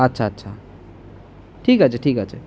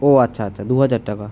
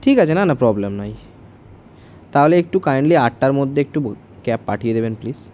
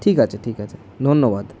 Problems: constant background noise